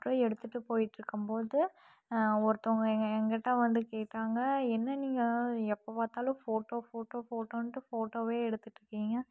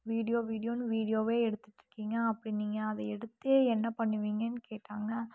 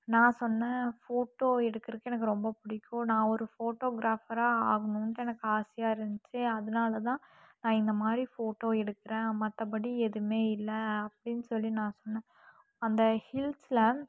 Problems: none marked